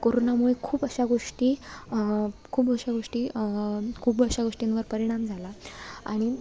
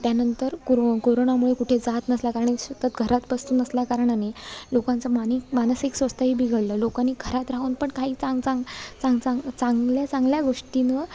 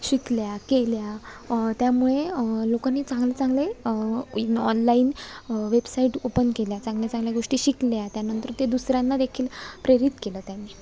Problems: background sounds at intervals